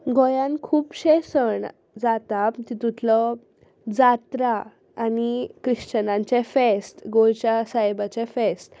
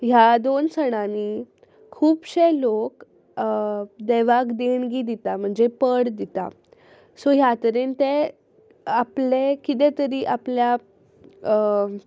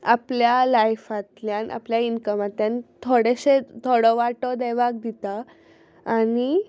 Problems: none marked